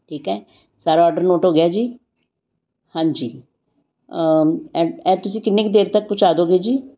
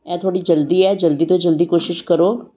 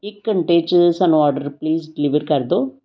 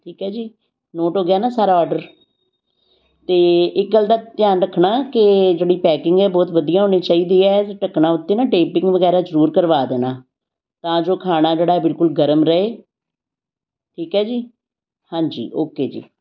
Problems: none marked